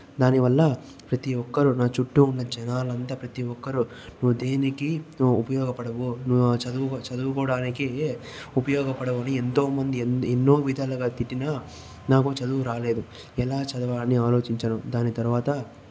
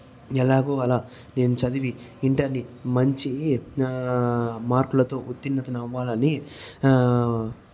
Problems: echo